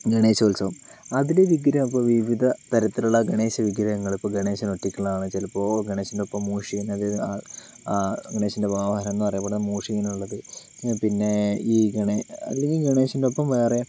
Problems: background sounds at intervals